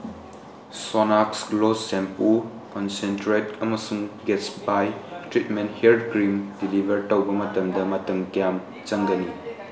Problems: background conversations at intervals